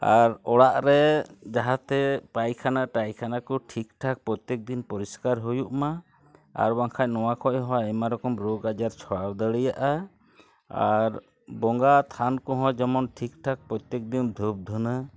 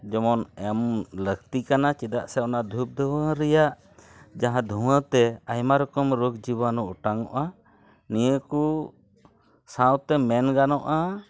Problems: background sounds at intervals, background conversations at intervals